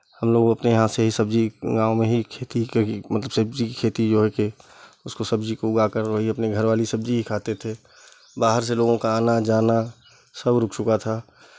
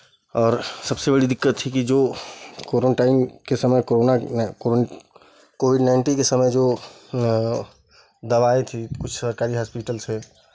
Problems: constant background noise